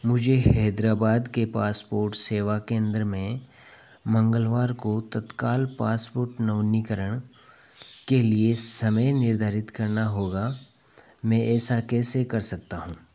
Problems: none marked